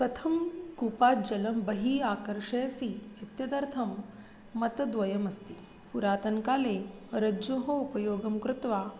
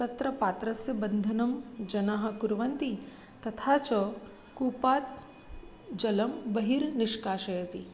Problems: constant background noise